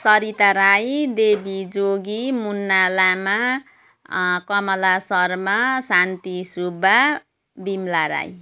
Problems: background sounds at intervals